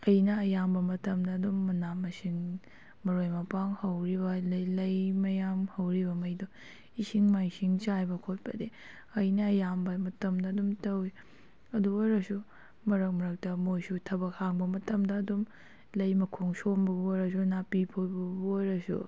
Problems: none marked